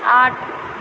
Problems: constant background noise